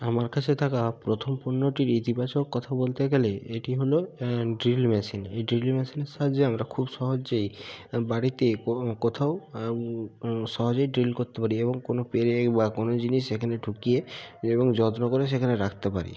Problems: constant background noise